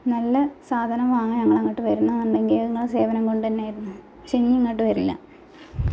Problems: background sounds at intervals